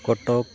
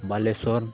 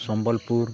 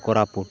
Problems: constant background noise